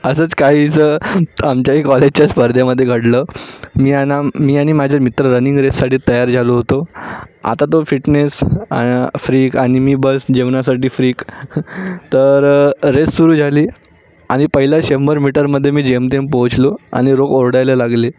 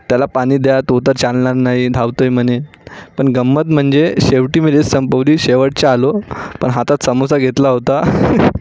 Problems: none marked